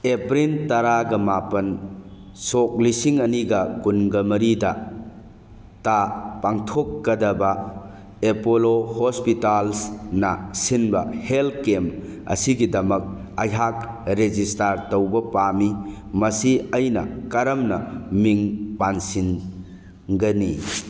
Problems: background sounds at intervals